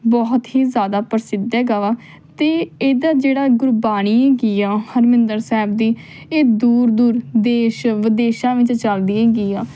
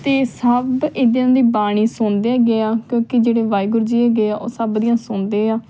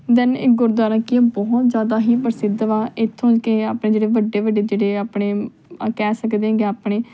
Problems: none marked